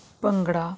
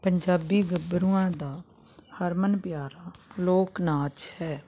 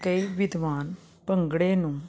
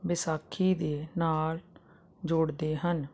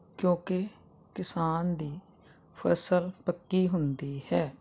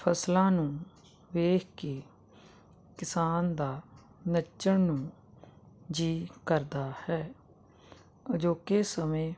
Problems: constant background noise